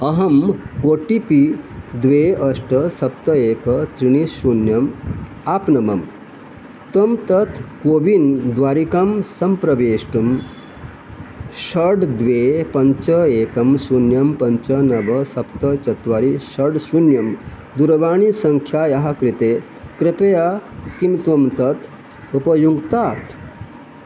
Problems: none marked